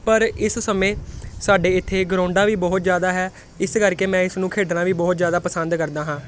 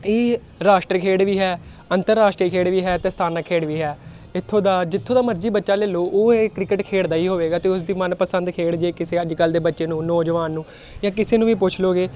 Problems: constant background noise